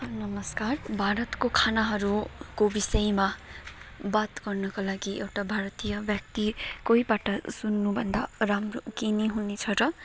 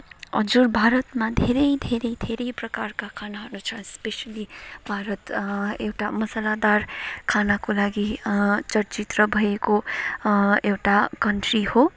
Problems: background sounds at intervals, background conversations at intervals